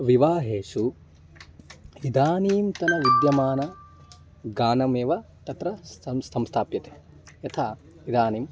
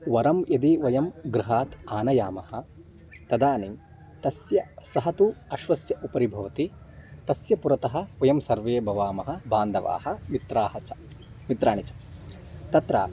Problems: background sounds at intervals